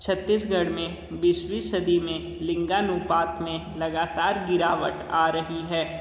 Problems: none marked